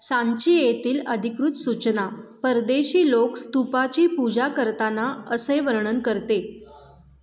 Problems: background sounds at intervals